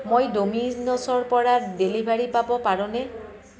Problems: constant background noise, continuous background conversations